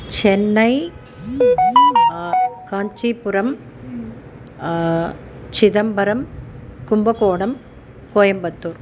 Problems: background sounds at intervals